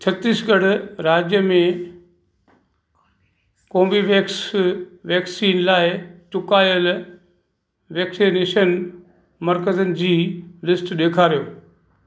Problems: constant background noise, background conversations at intervals, echo